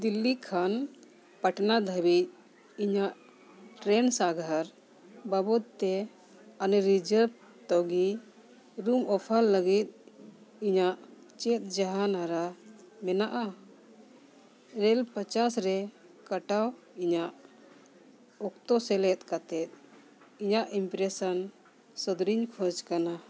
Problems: continuous background conversations